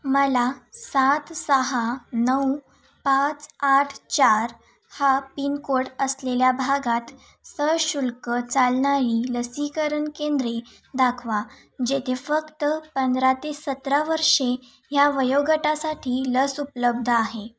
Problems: none marked